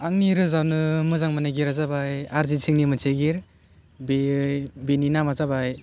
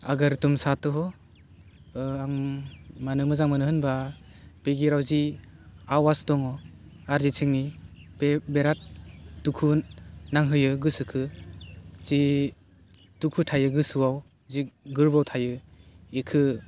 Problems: none marked